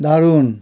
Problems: none marked